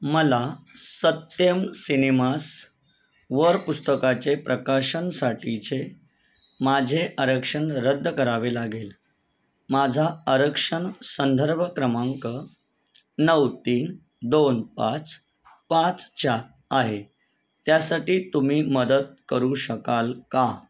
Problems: none marked